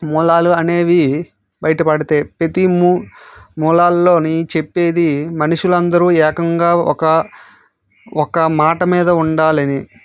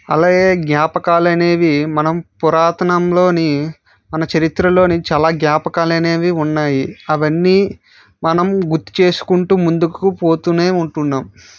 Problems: none marked